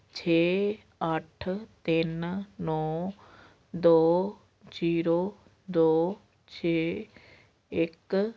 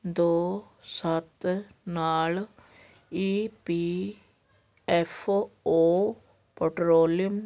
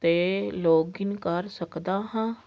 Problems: none marked